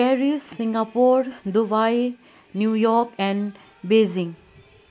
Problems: constant background noise